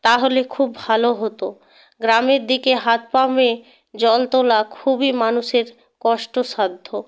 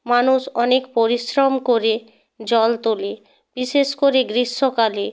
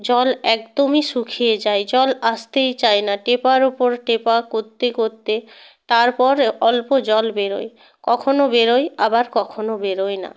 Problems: background sounds at intervals